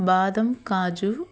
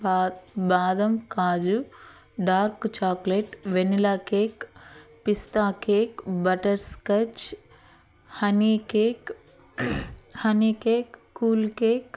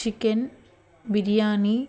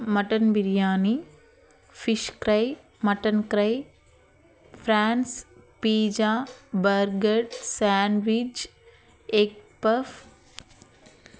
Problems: none marked